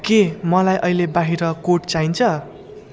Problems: constant background noise